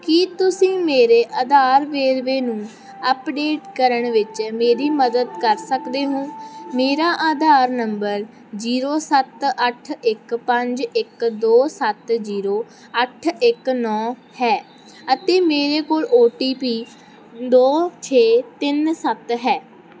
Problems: none marked